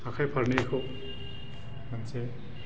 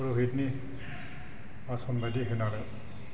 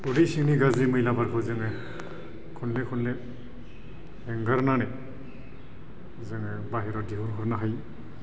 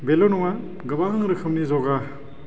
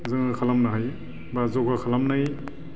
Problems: constant background noise